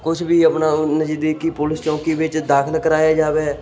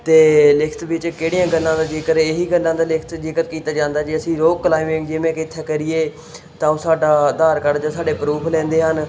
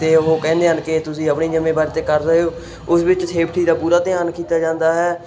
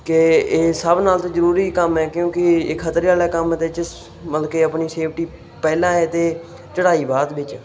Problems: none marked